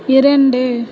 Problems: constant background noise